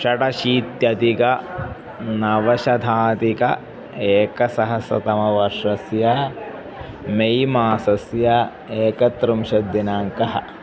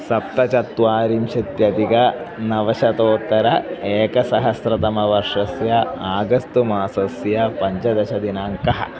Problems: background sounds at intervals